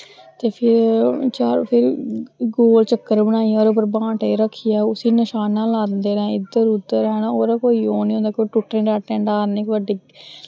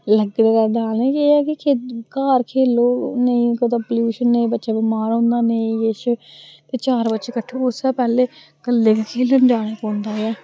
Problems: constant background noise